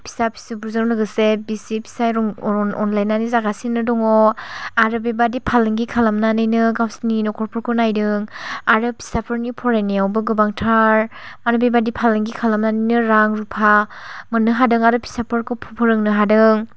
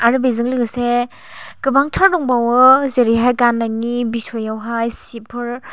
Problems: none marked